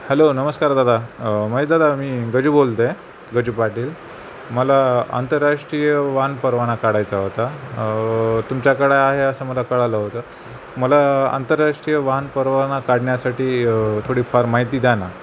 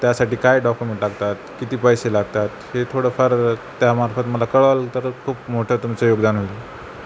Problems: constant background noise